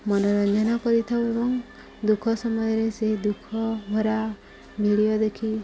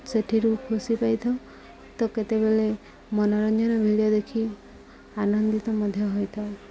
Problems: background sounds at intervals